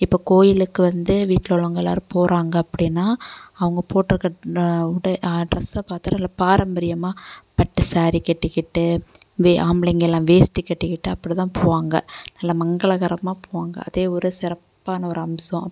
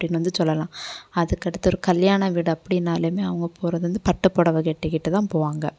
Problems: none marked